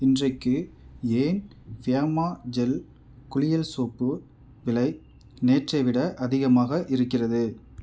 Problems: none marked